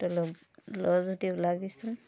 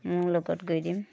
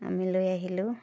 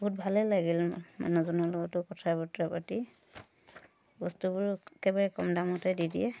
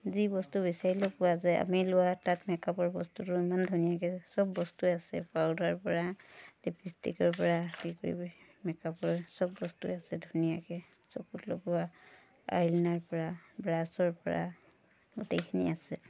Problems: background sounds at intervals, background conversations at intervals